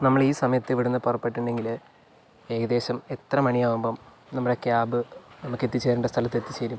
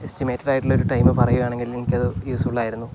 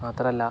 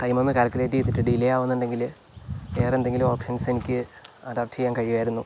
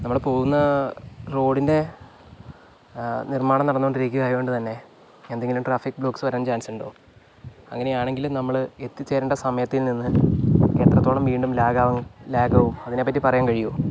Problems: low volume